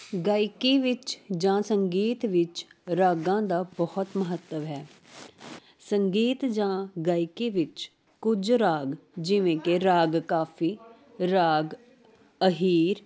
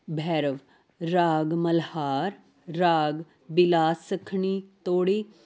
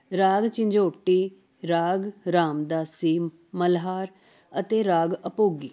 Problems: constant background noise